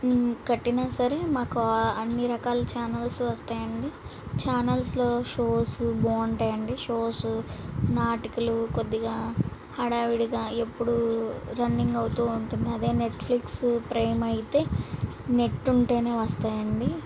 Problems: none marked